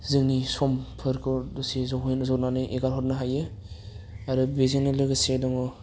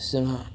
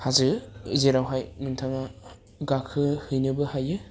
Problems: low volume